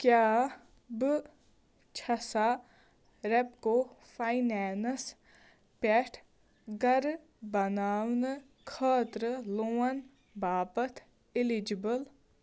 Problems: none marked